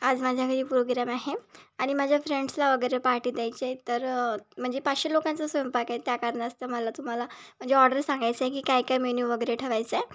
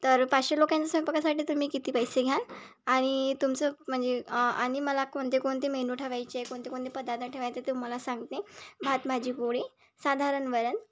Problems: background sounds at intervals